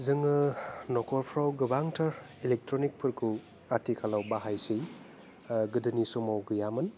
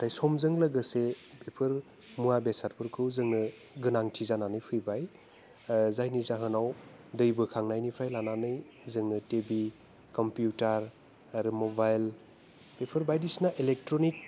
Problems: constant background noise